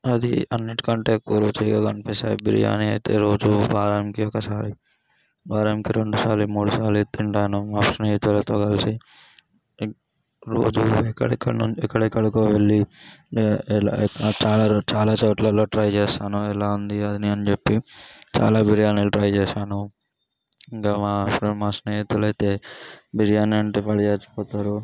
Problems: low volume